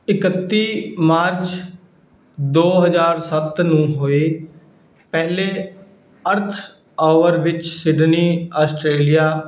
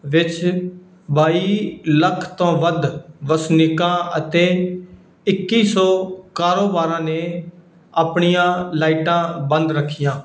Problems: background sounds at intervals